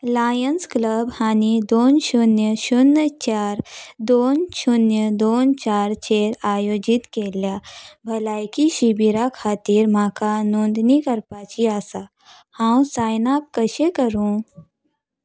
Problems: background sounds at intervals